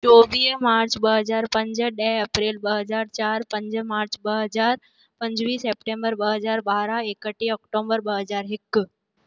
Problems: none marked